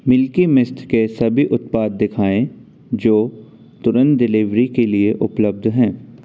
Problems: constant background noise